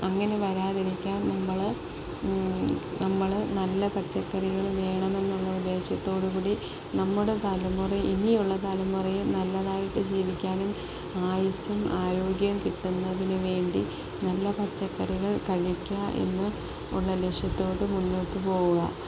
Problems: none marked